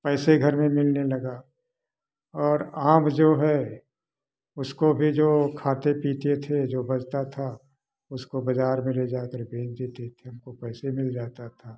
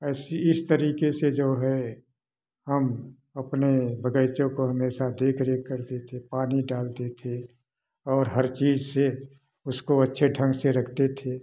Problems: background sounds at intervals